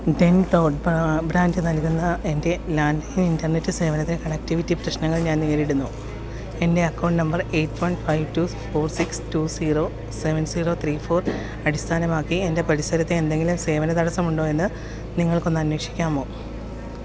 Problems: constant background noise